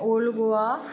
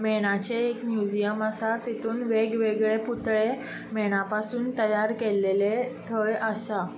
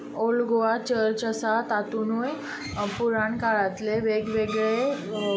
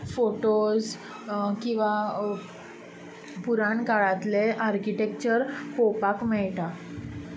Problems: constant background noise